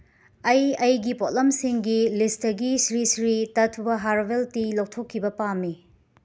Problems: none marked